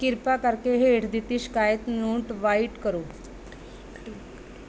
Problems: background conversations at intervals